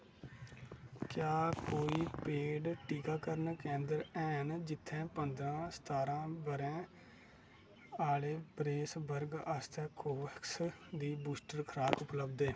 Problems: low volume